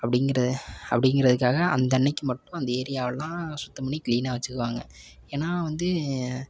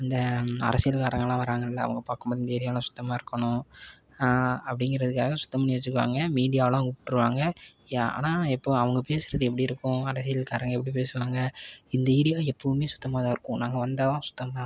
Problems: background sounds at intervals